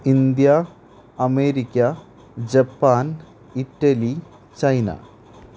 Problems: constant background noise